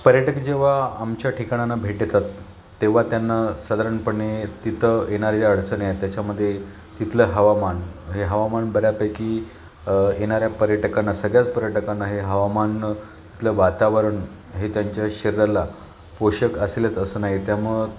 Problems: constant background noise, continuous background conversations